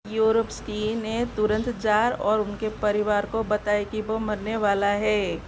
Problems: constant background noise